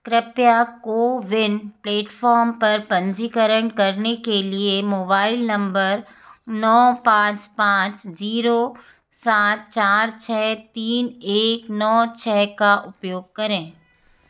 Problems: background sounds at intervals